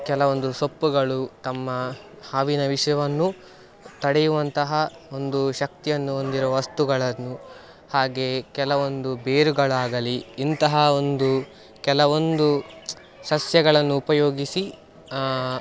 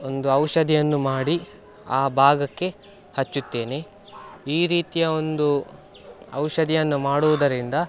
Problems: background sounds at intervals